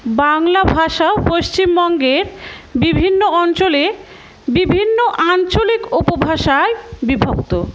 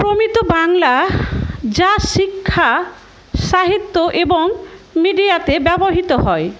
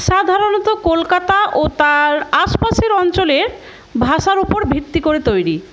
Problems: background sounds at intervals, background conversations at intervals